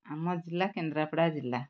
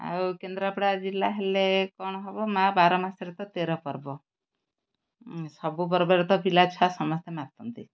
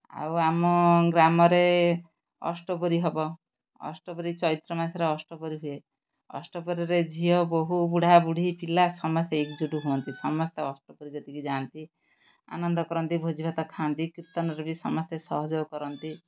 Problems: background sounds at intervals